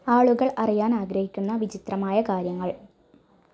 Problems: none marked